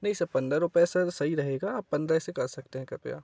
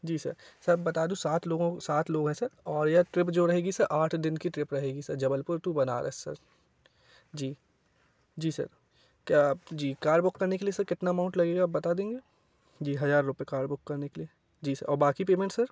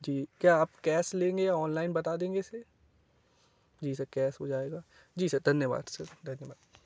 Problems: none marked